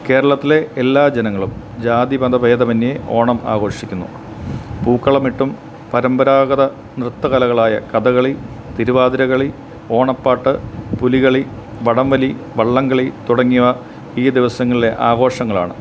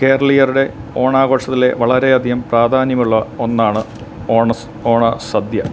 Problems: constant background noise